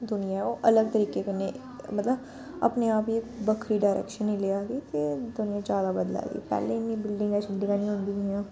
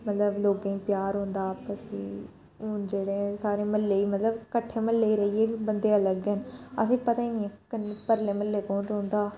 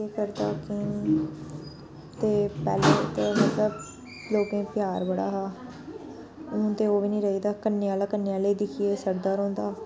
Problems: background sounds at intervals